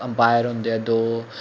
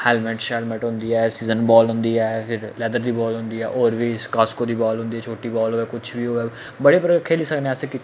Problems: constant background noise